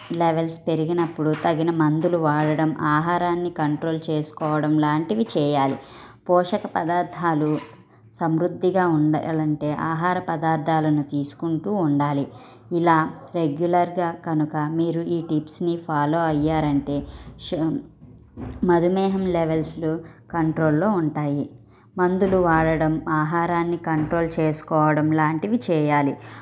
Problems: background sounds at intervals, low volume